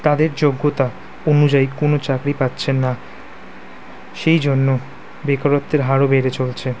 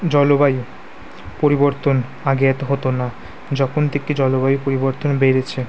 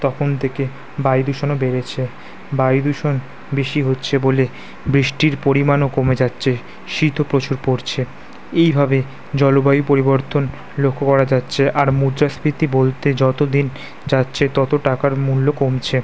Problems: constant background noise